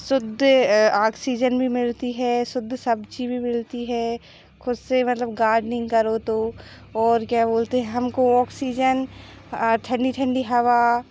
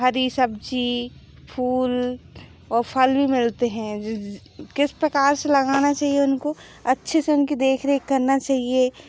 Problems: background sounds at intervals